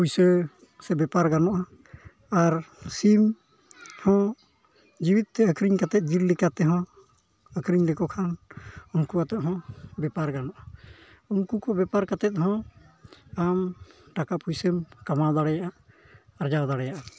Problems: background sounds at intervals, low volume